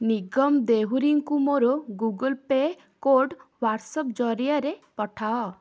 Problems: none marked